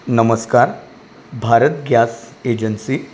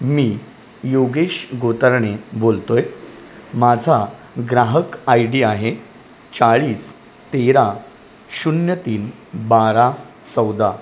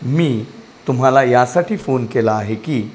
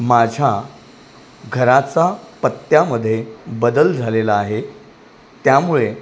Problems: constant background noise